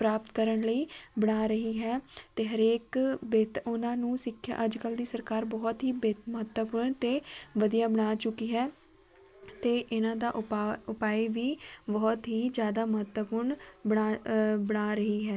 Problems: none marked